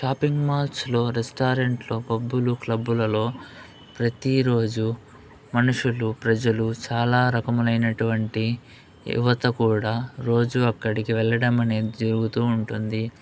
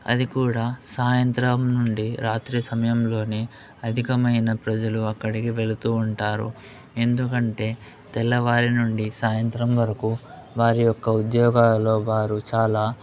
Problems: constant background noise